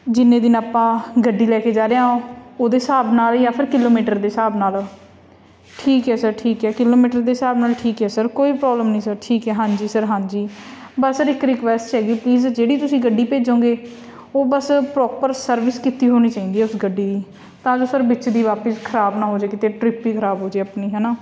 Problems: constant background noise